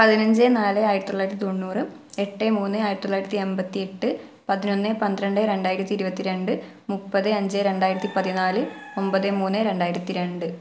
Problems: background sounds at intervals